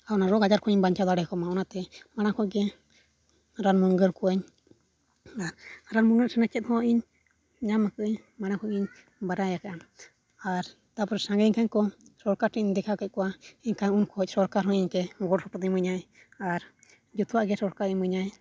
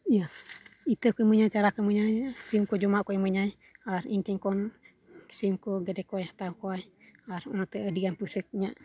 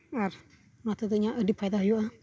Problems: low volume